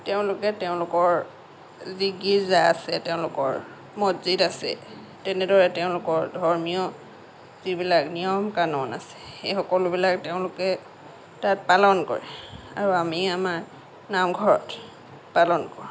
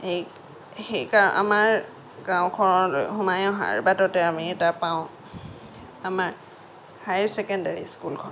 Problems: none marked